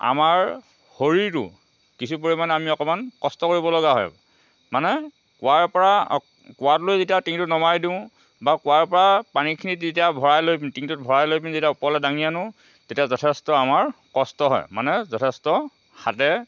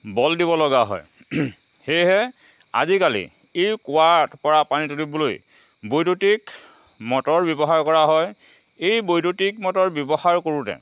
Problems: constant background noise